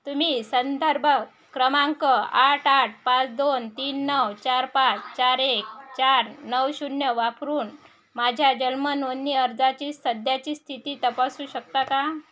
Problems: none marked